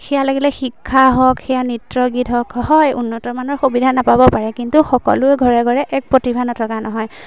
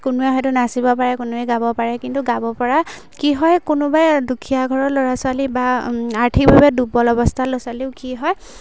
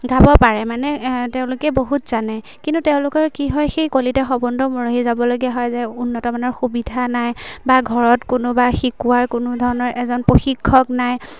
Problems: none marked